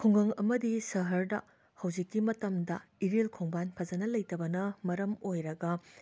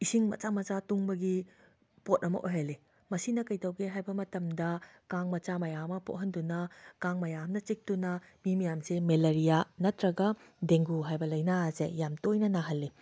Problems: background sounds at intervals